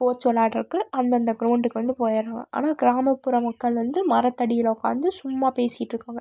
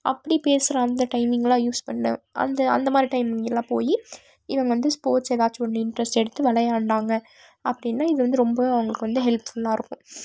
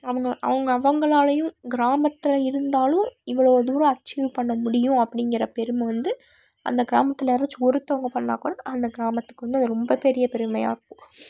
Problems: none marked